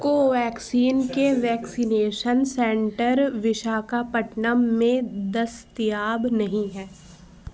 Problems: constant background noise, background conversations at intervals